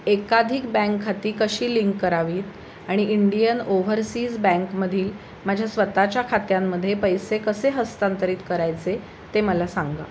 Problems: constant background noise